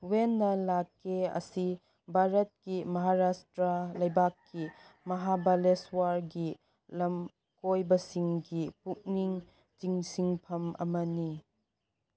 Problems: none marked